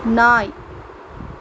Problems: none marked